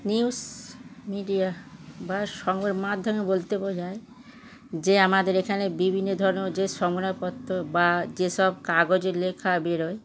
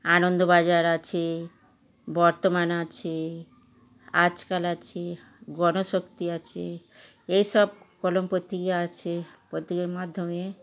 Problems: constant background noise, continuous background conversations